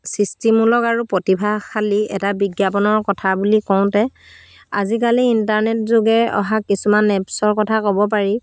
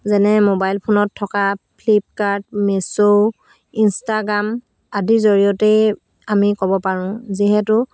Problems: constant background noise